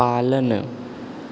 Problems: constant background noise